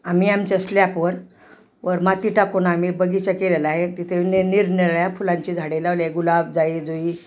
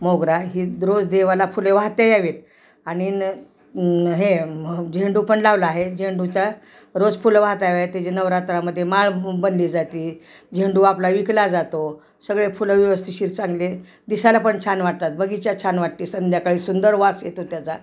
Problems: none marked